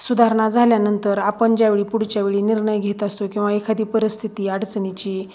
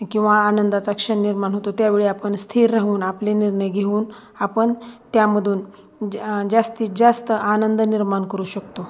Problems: none marked